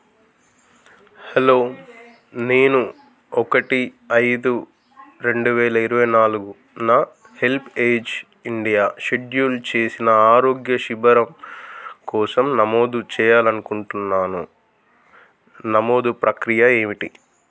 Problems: none marked